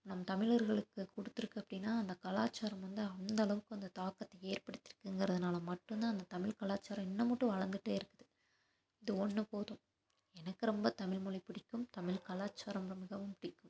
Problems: constant background noise